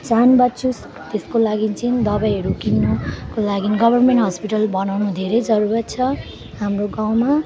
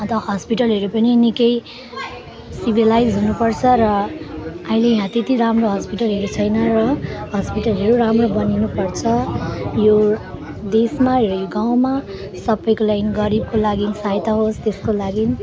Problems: constant background noise, continuous background conversations